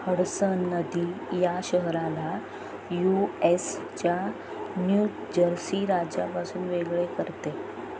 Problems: constant background noise